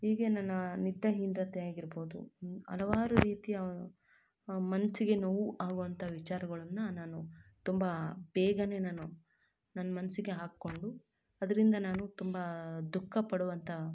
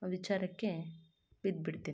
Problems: none marked